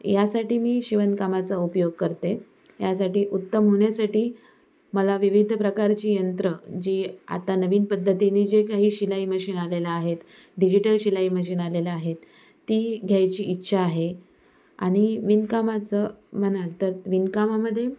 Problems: none marked